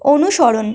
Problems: constant background noise